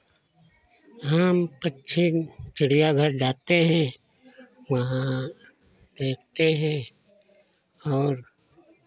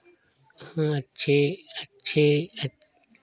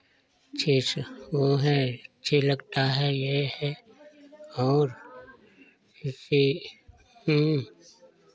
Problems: constant background noise